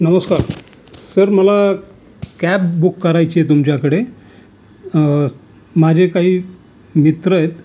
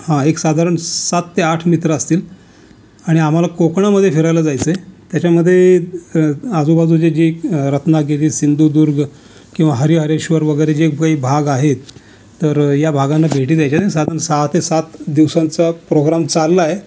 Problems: none marked